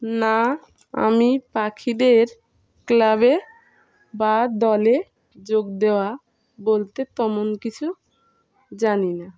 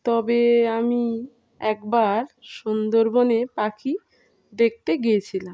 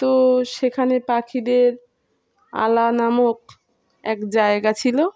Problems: continuous background conversations